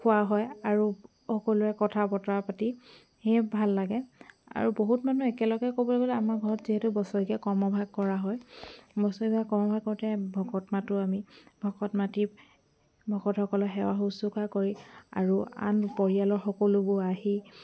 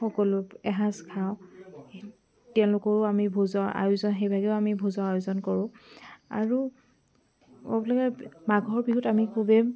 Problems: background sounds at intervals, background conversations at intervals